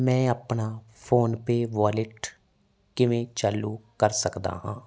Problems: none marked